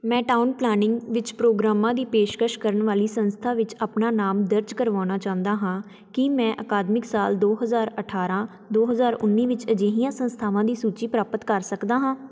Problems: background sounds at intervals